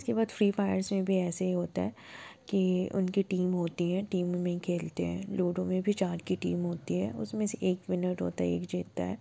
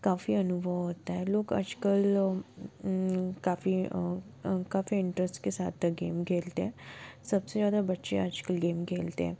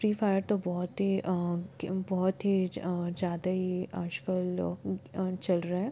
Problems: background sounds at intervals